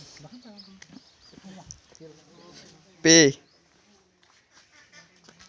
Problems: none marked